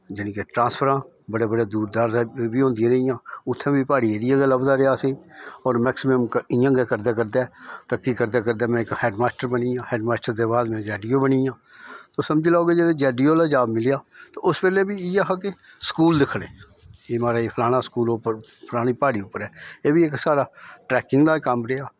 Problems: none marked